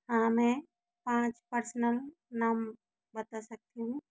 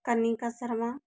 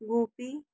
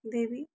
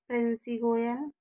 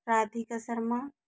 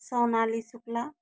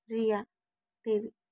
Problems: low volume